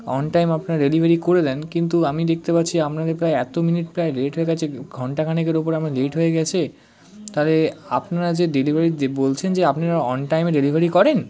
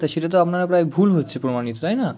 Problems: constant background noise, background conversations at intervals